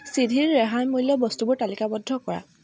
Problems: background sounds at intervals